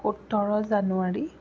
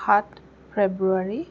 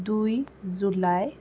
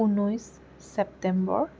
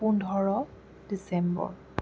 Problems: background sounds at intervals